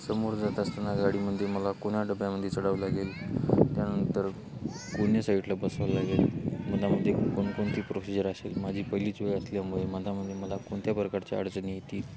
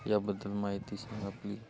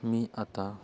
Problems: constant background noise